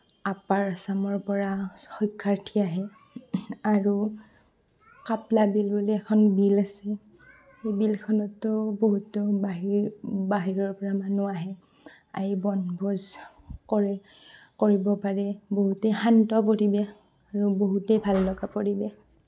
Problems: background sounds at intervals